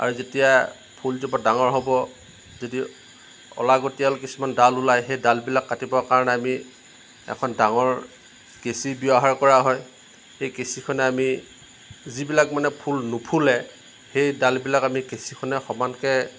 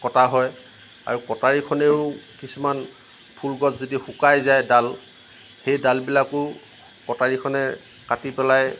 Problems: none marked